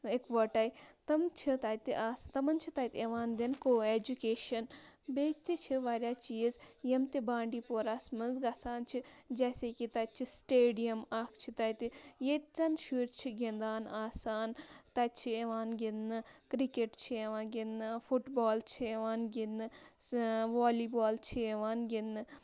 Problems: constant background noise